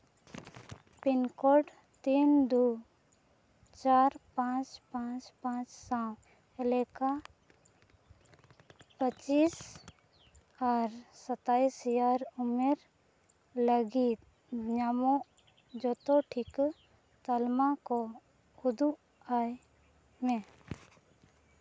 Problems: background sounds at intervals